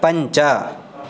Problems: constant background noise